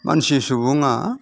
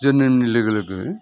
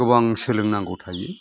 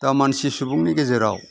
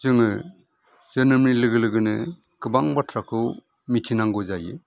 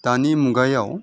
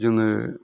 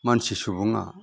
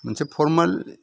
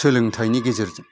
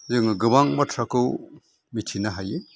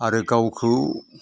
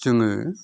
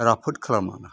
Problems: none marked